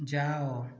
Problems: low volume